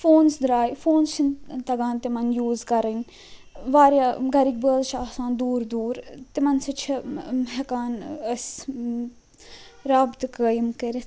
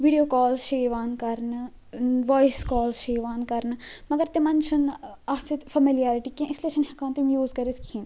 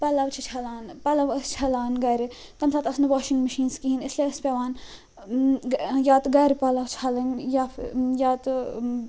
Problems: constant background noise